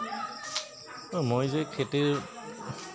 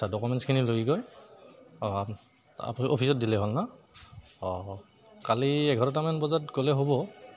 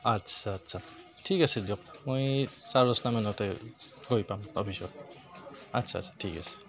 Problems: none marked